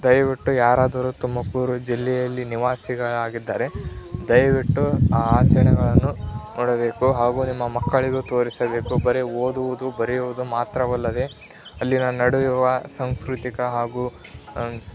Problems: constant background noise, continuous background conversations